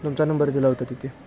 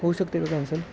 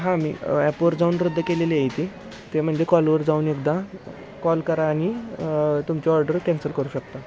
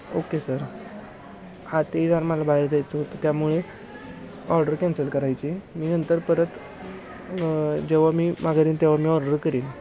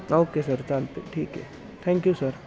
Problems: constant background noise, continuous background conversations